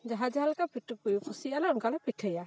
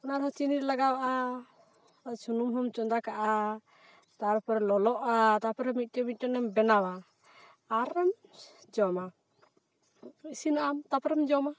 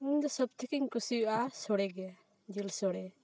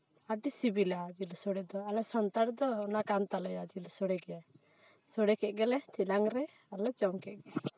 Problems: background sounds at intervals